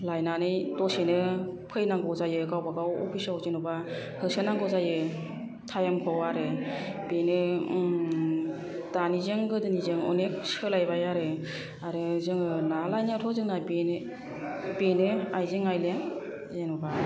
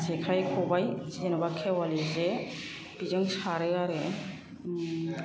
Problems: none marked